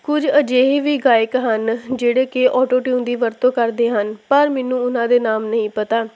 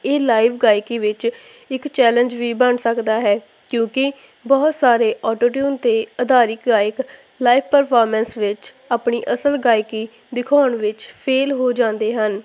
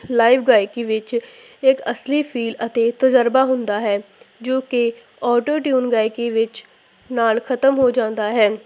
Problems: constant background noise